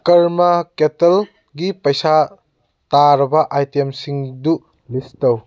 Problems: none marked